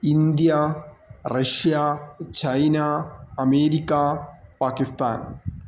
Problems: none marked